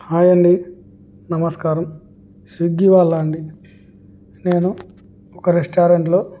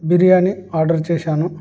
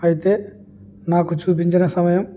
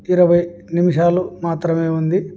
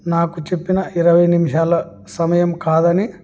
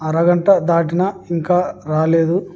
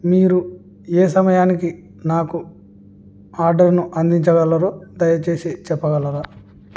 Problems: none marked